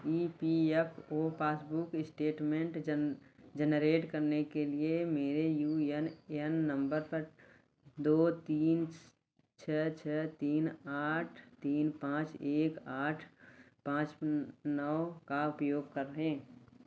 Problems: none marked